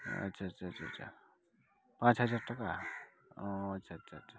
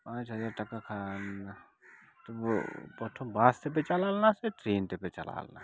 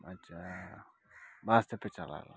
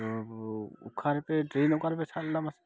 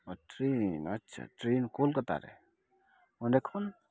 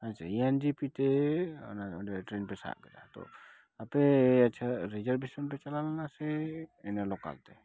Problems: none marked